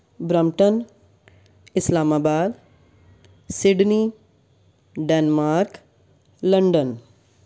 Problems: background sounds at intervals